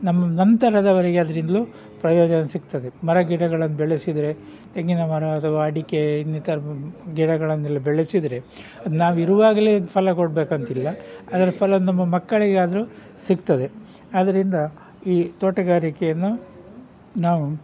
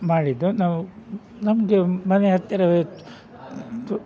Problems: background sounds at intervals